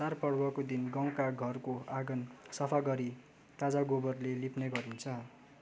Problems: none marked